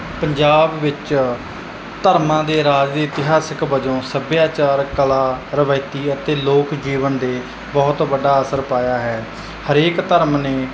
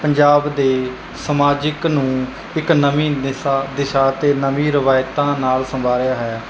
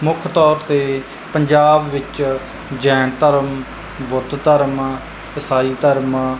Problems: none marked